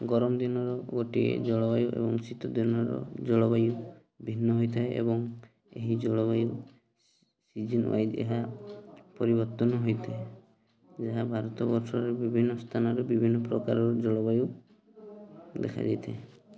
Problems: constant background noise, continuous background conversations